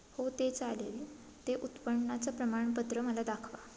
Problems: background sounds at intervals